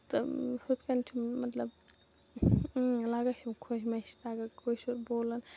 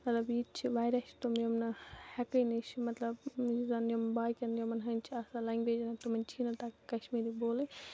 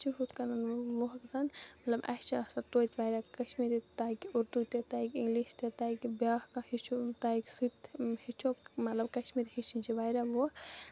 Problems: background sounds at intervals, low volume